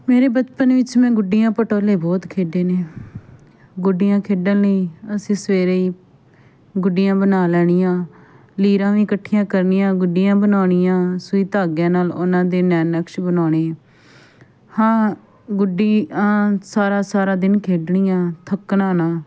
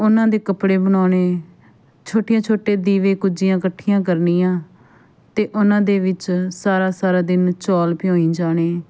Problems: background sounds at intervals, background conversations at intervals